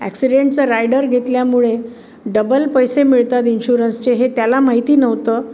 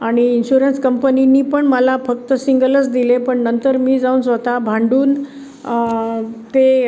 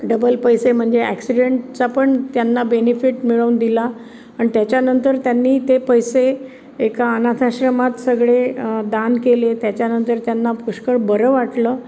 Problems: none marked